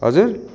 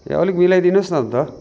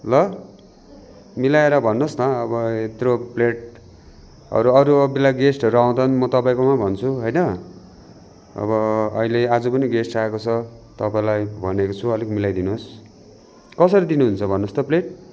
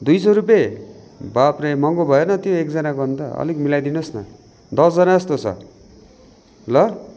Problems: constant background noise, continuous background conversations